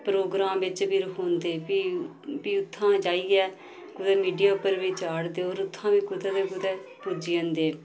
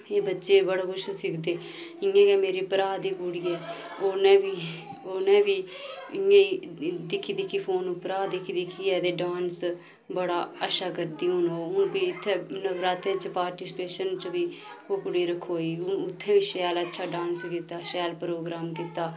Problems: constant background noise